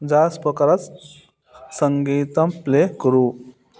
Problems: none marked